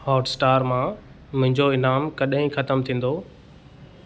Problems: none marked